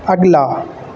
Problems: constant background noise